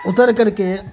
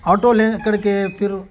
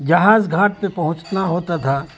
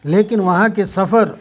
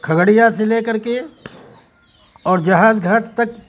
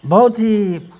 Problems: constant background noise, background conversations at intervals